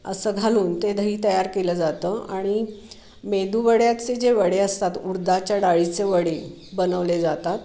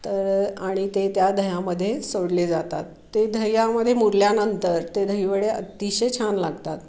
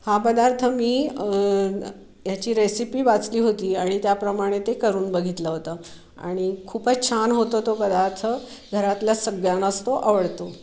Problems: none marked